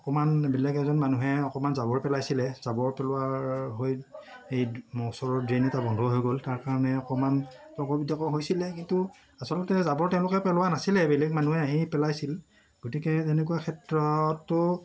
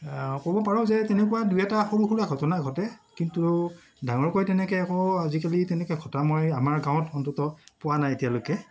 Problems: background sounds at intervals, background conversations at intervals